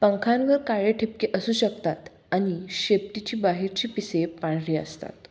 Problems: none marked